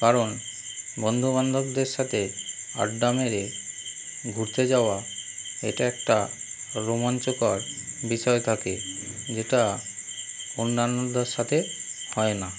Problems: constant background noise